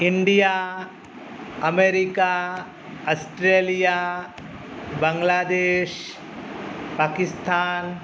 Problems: none marked